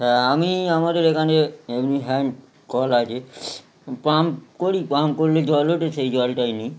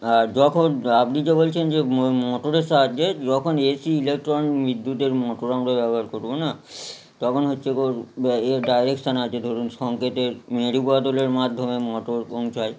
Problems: constant background noise